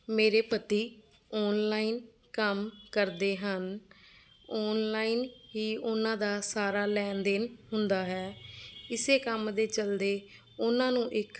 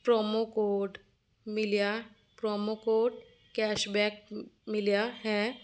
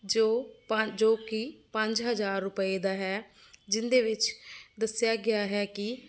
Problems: none marked